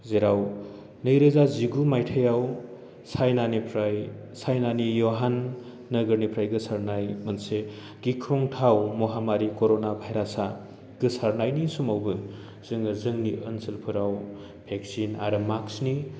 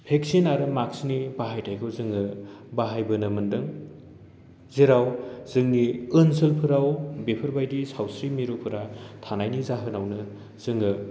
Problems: low volume